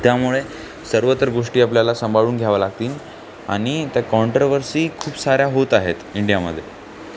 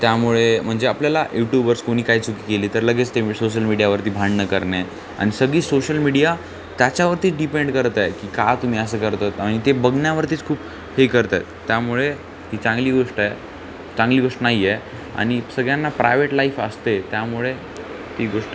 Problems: none marked